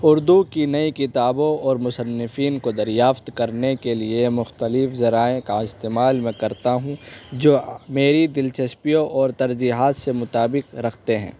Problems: constant background noise